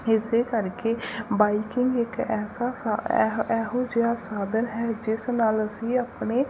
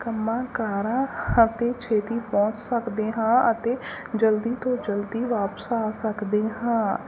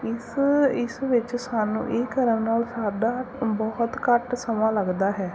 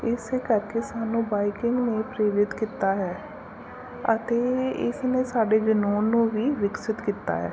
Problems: constant background noise, background conversations at intervals